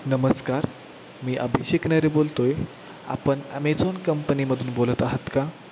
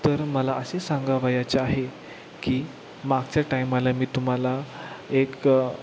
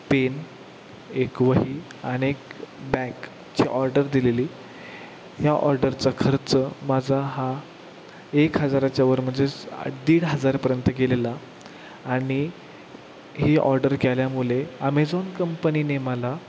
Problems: constant background noise